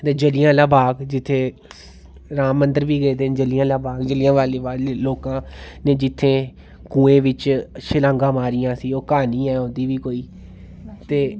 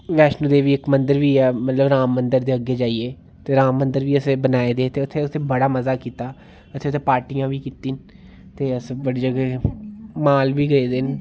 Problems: none marked